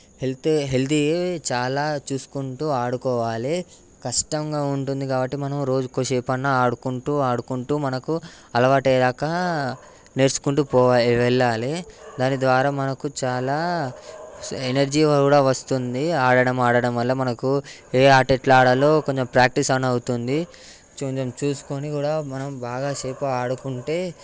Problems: background sounds at intervals